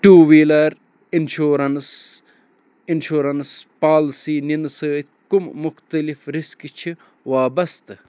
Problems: none marked